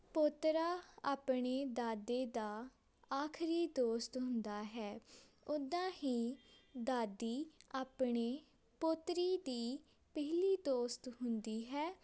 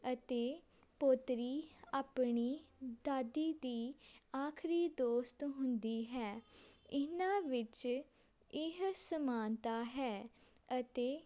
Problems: background sounds at intervals